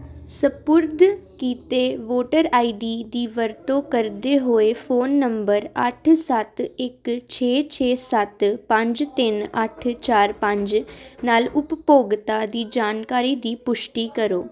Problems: constant background noise